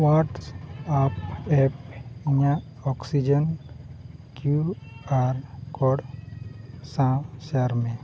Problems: constant background noise, low volume